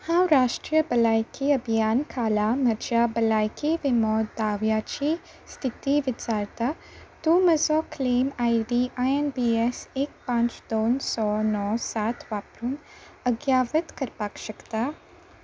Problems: none marked